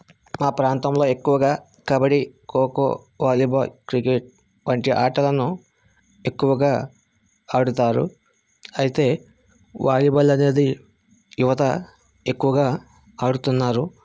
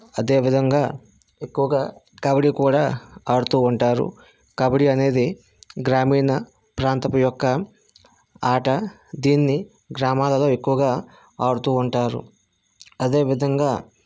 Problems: none marked